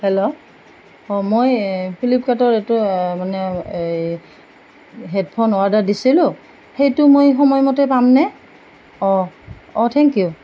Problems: none marked